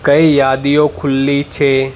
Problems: constant background noise